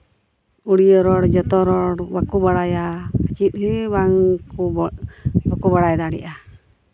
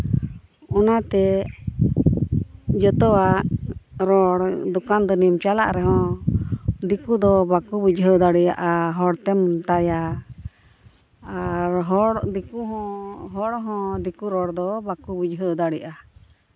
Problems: none marked